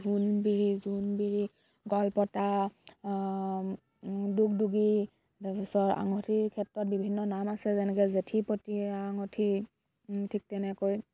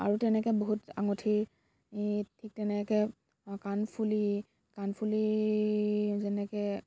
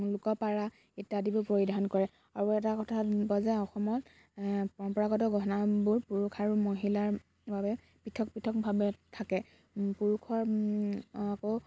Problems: none marked